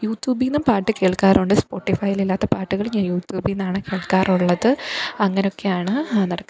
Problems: background sounds at intervals